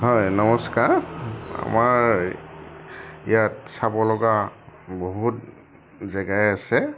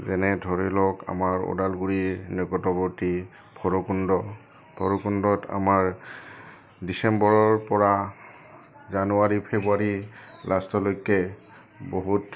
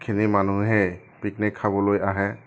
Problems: none marked